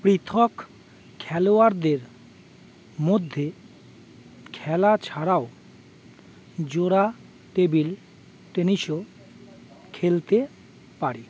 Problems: none marked